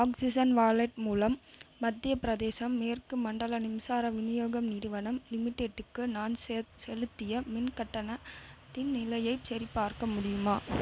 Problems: constant background noise